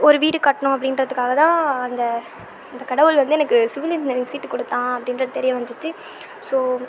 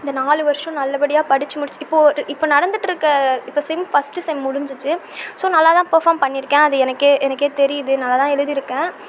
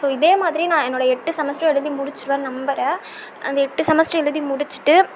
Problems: constant background noise